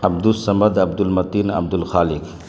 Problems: constant background noise